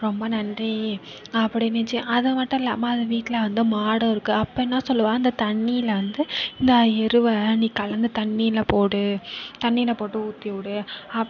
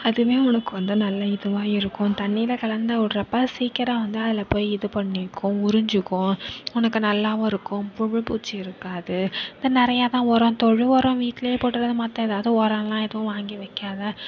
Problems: continuous background conversations